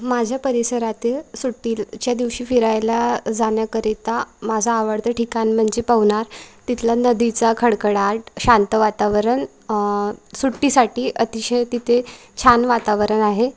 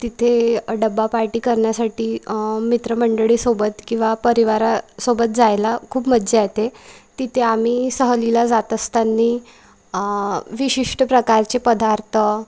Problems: none marked